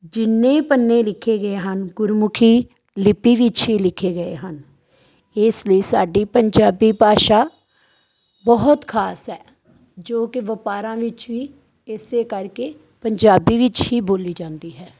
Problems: none marked